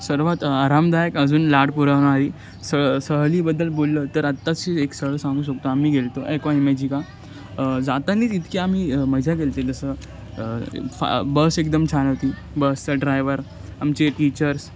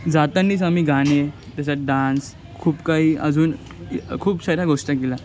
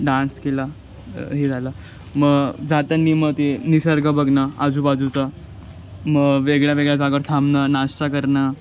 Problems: none marked